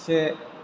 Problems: constant background noise